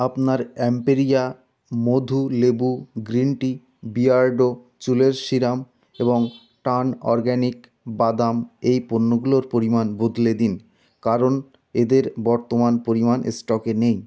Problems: none marked